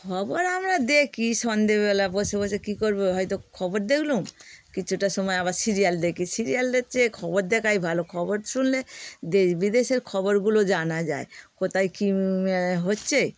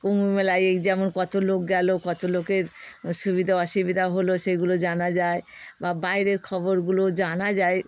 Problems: constant background noise